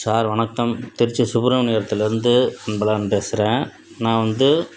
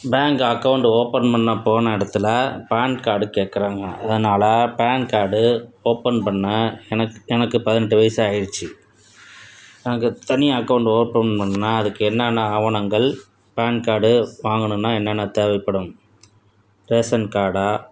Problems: none marked